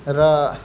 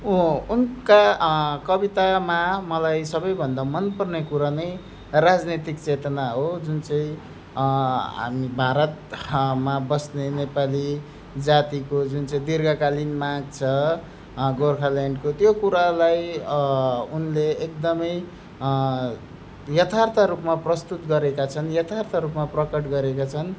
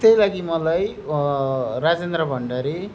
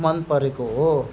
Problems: background sounds at intervals